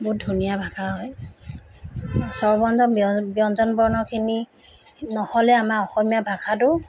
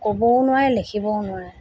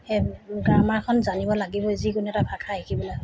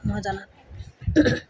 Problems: constant background noise